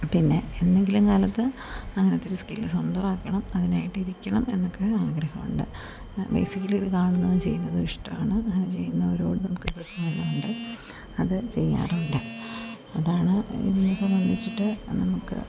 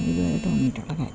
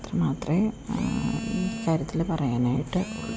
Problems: background sounds at intervals